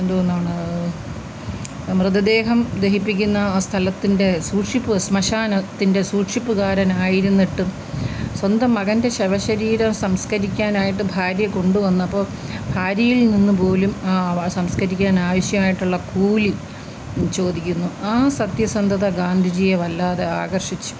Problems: constant background noise